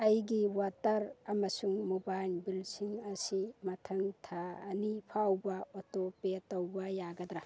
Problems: background sounds at intervals